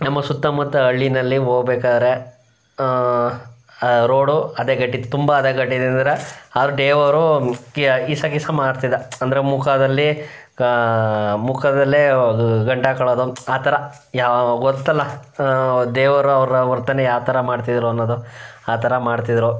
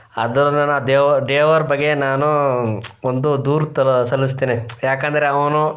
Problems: background sounds at intervals